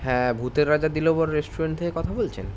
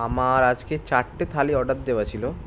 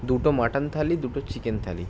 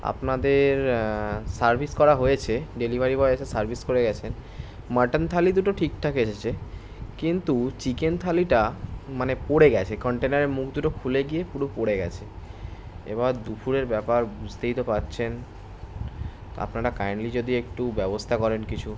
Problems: constant background noise